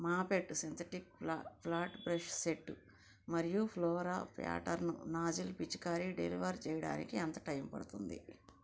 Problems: low volume